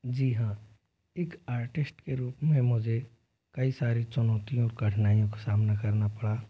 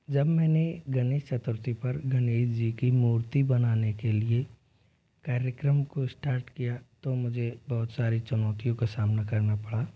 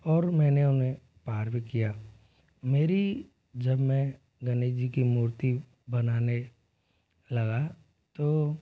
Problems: constant background noise, low volume